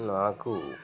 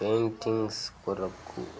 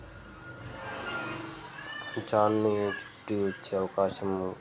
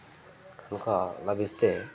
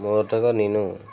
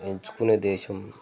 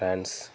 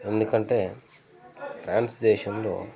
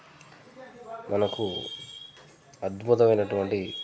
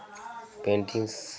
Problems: constant background noise, continuous background conversations